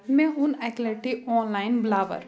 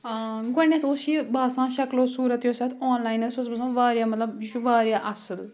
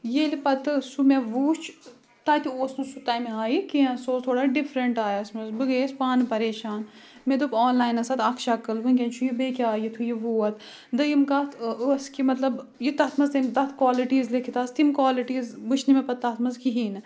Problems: continuous background conversations